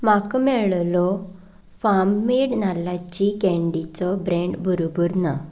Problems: none marked